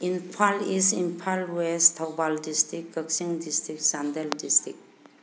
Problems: background sounds at intervals